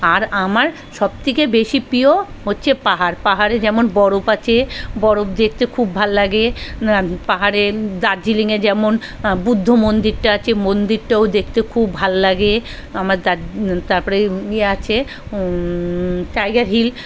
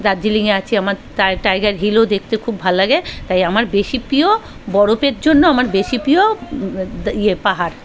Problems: constant background noise, background conversations at intervals